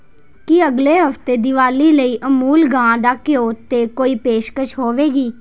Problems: background sounds at intervals